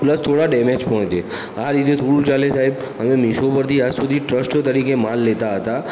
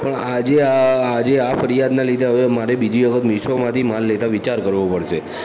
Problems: continuous background conversations